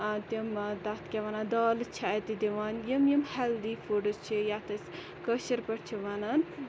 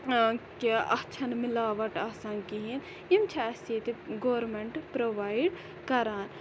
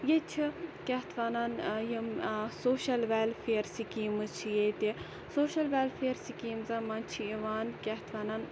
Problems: constant background noise